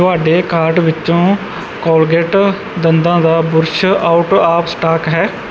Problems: none marked